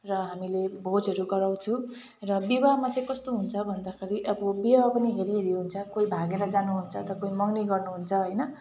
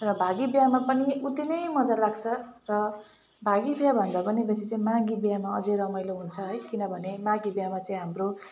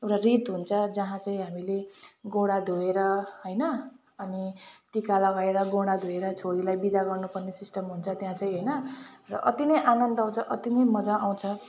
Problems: constant background noise